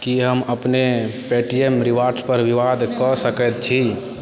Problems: none marked